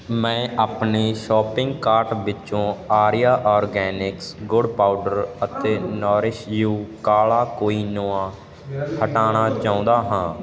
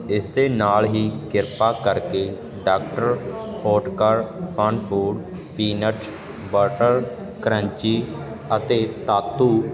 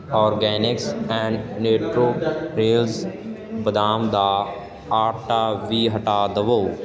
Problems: constant background noise